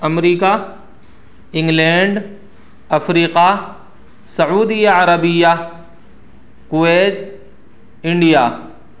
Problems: none marked